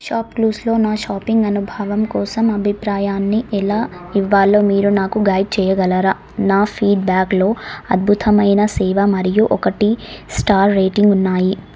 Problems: none marked